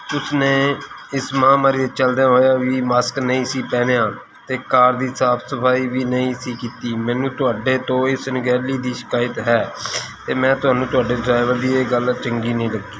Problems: background sounds at intervals